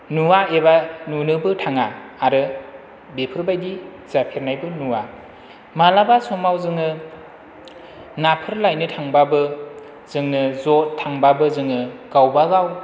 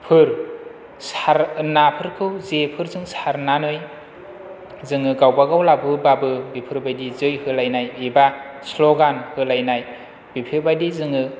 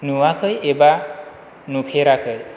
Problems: none marked